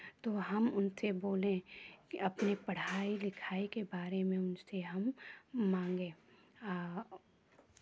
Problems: background sounds at intervals